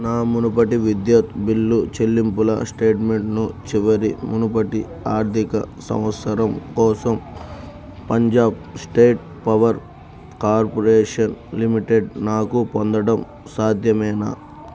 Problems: constant background noise